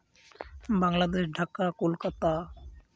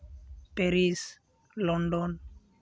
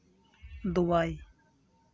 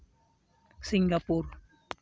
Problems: constant background noise